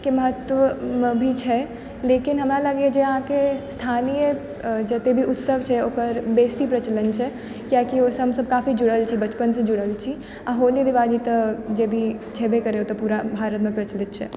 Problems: background sounds at intervals